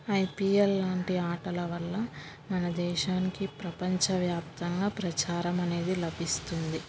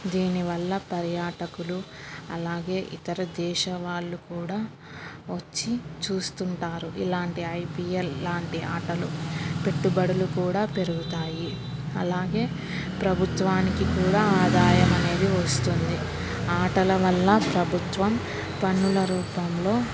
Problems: background sounds at intervals